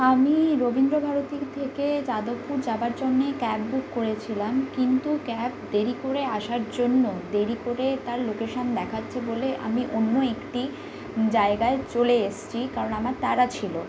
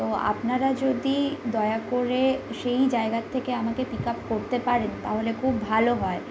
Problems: constant background noise